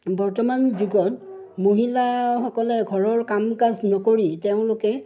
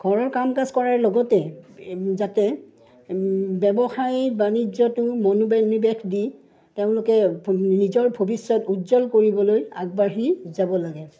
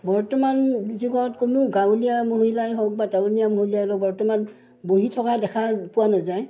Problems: none marked